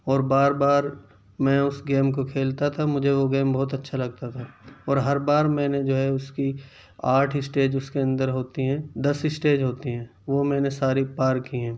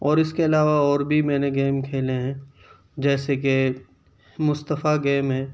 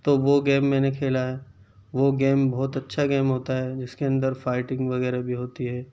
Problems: none marked